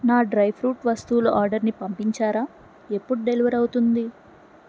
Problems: none marked